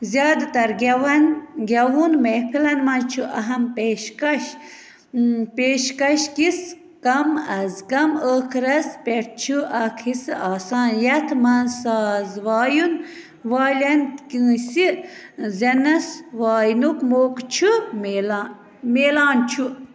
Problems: constant background noise